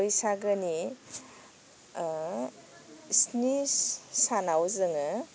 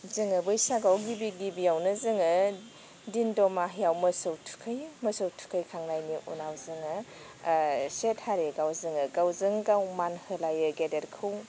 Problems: none marked